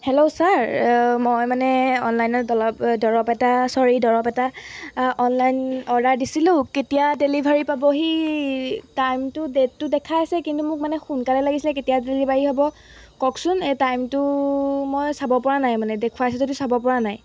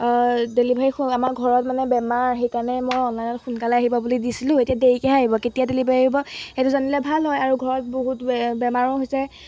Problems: background sounds at intervals